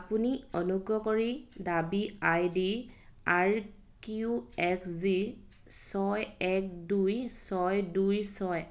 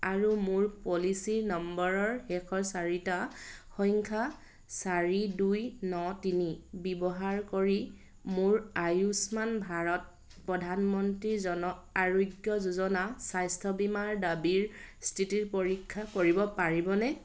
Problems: constant background noise